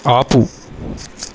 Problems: constant background noise